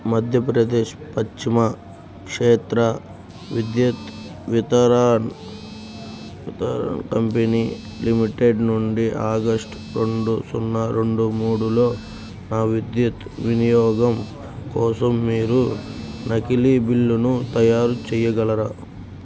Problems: none marked